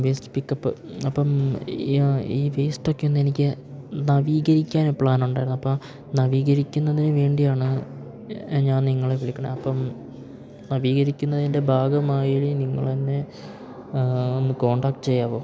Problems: background sounds at intervals